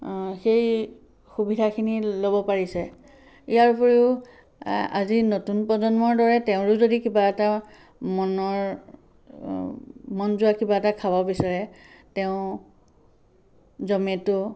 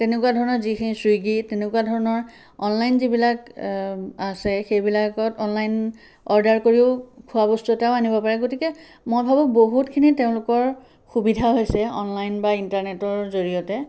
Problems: background sounds at intervals